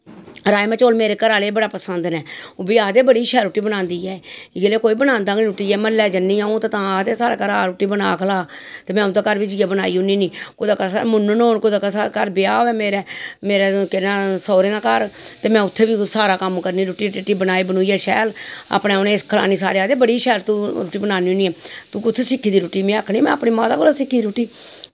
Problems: constant background noise